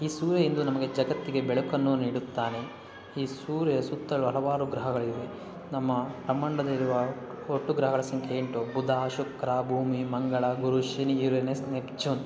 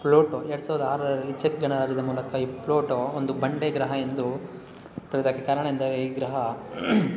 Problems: background sounds at intervals